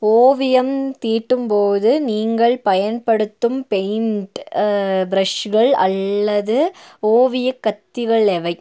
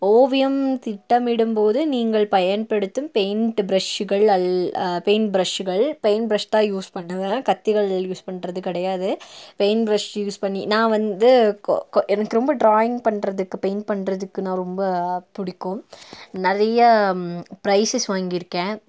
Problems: none marked